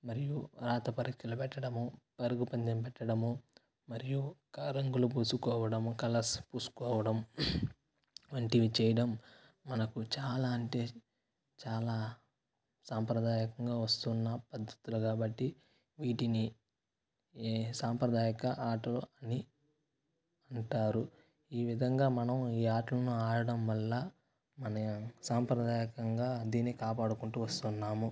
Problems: constant background noise, low volume